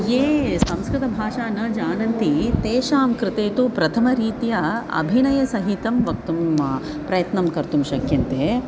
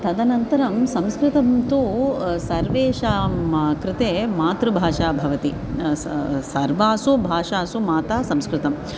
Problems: none marked